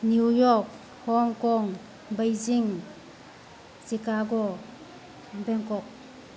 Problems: constant background noise